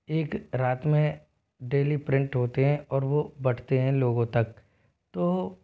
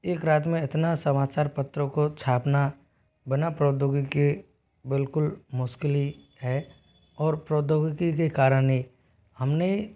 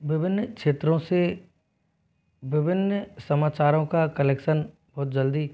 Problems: background sounds at intervals